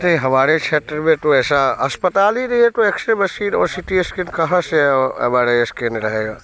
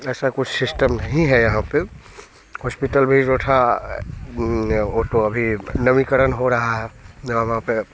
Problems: none marked